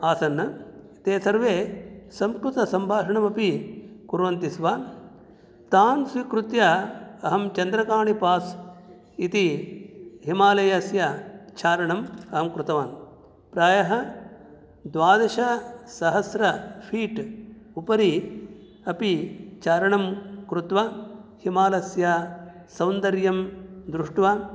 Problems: none marked